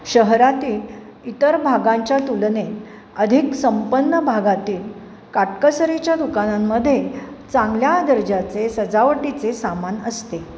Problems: none marked